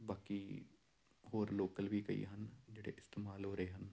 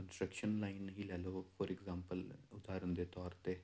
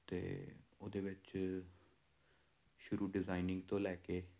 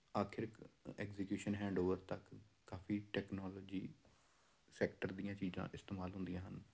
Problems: none marked